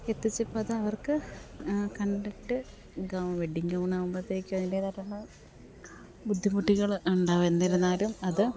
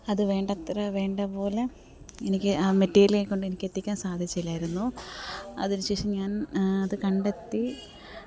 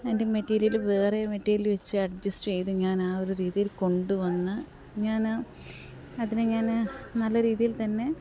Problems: background sounds at intervals, background conversations at intervals, low volume